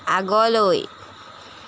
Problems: constant background noise